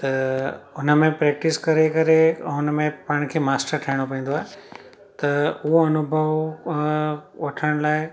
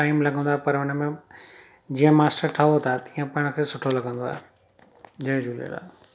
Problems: constant background noise